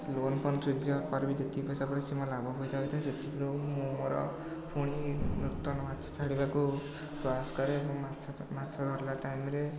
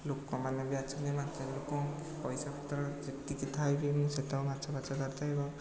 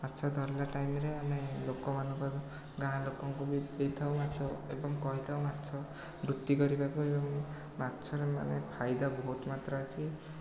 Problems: background sounds at intervals, background conversations at intervals